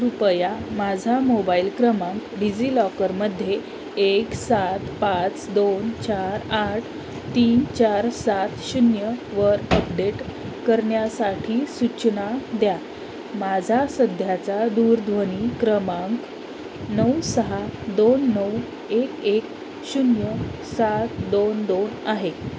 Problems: constant background noise